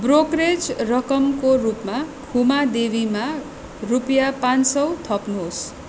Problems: constant background noise